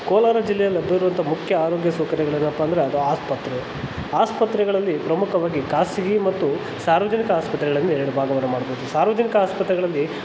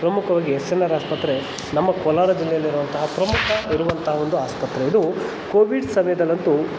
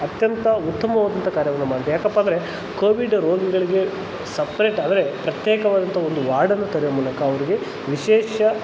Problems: constant background noise